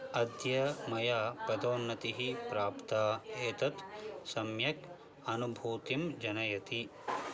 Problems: background sounds at intervals